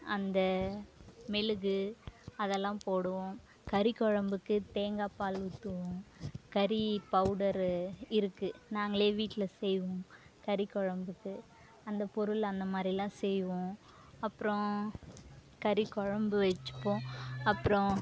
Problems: none marked